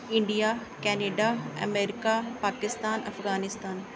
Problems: none marked